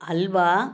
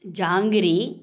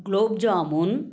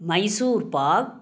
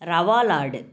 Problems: background sounds at intervals